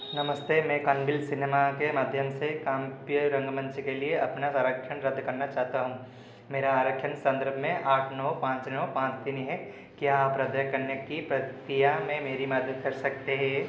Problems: none marked